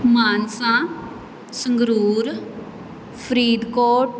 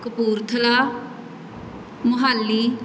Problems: none marked